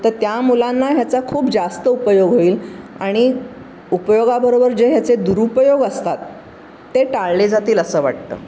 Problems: none marked